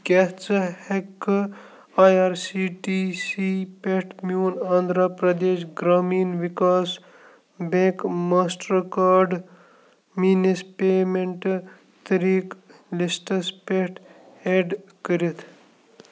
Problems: low volume